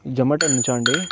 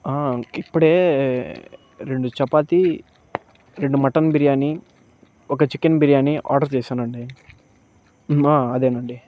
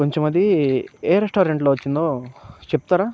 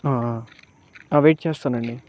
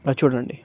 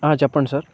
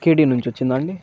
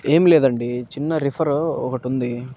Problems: constant background noise, background conversations at intervals